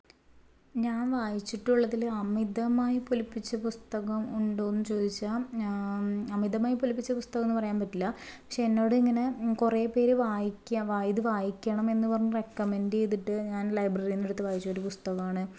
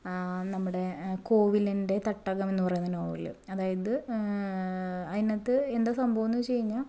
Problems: none marked